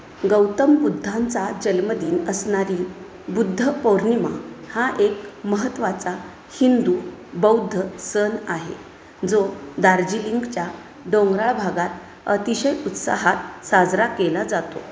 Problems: constant background noise